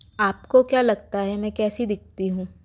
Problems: constant background noise